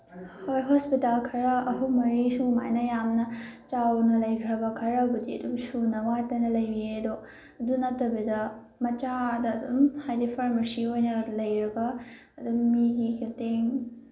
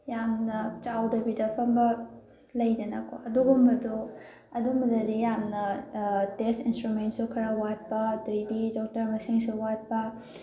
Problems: background conversations at intervals